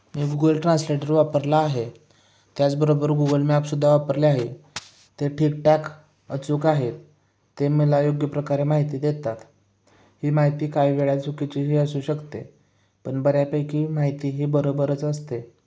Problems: background sounds at intervals